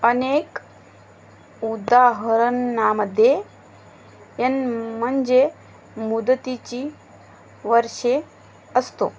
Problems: constant background noise